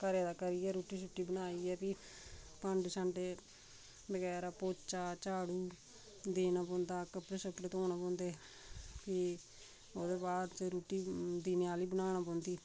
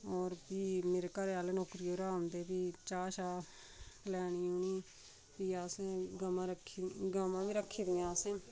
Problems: constant background noise, background conversations at intervals, low volume